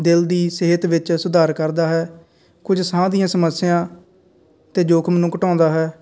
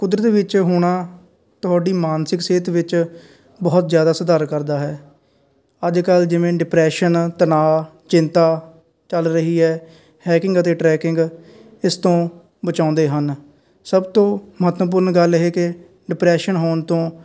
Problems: constant background noise